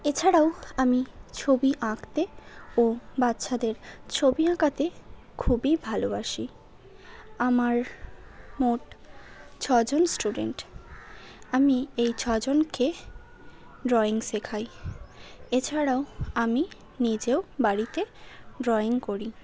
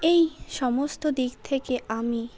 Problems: constant background noise